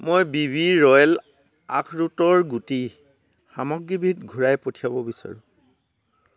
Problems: none marked